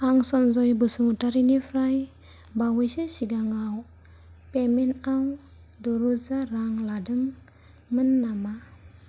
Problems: low volume